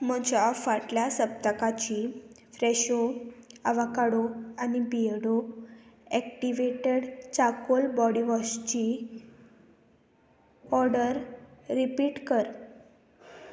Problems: constant background noise